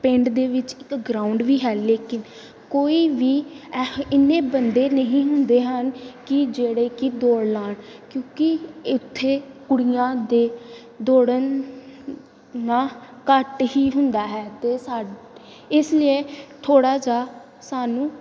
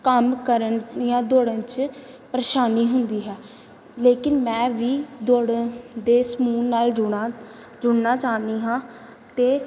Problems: background sounds at intervals